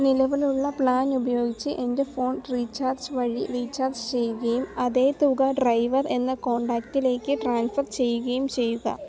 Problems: background sounds at intervals